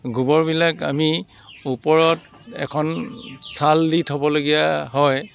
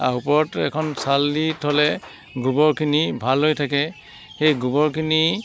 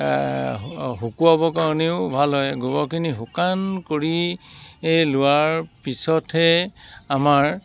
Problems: constant background noise